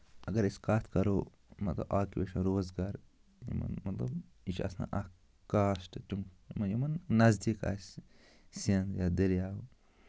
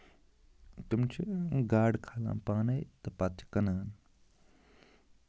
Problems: constant background noise